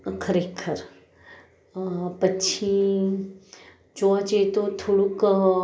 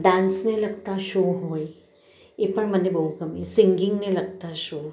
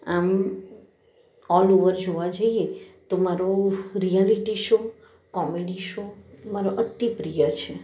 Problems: none marked